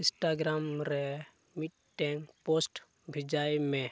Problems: none marked